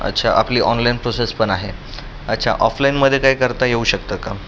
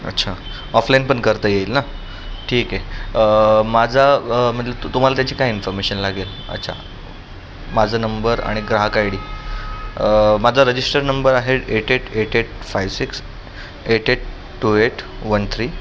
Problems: constant background noise, background conversations at intervals